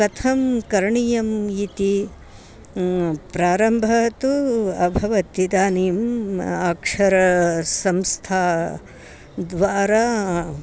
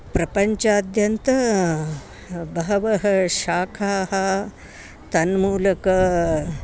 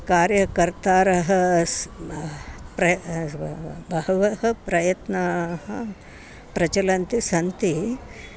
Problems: constant background noise